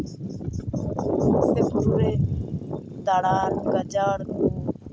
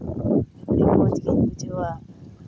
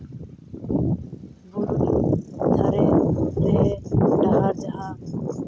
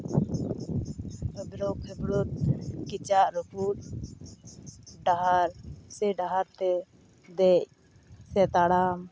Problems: constant background noise